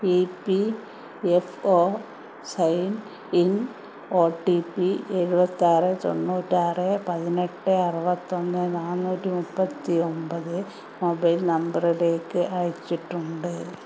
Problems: constant background noise